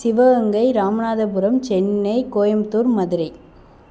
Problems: none marked